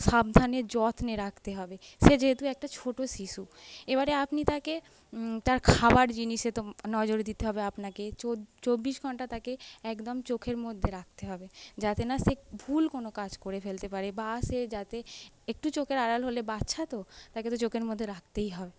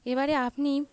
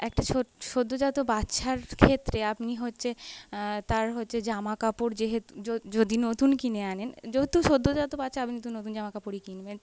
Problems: background sounds at intervals